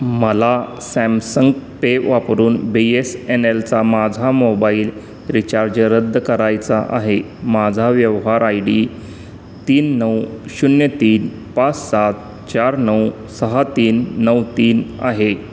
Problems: constant background noise